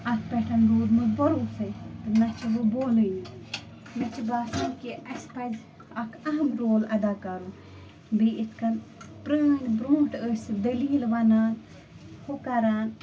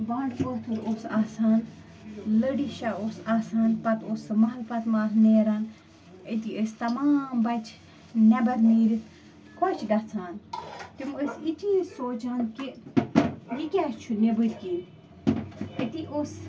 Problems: constant background noise